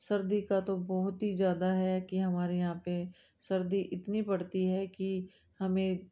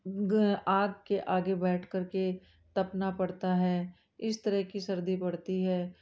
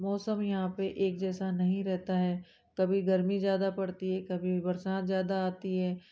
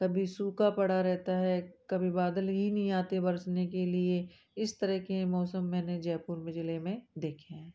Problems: none marked